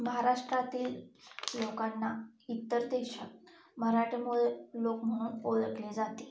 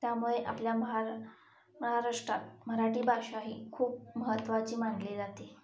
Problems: none marked